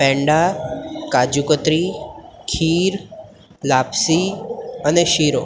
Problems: none marked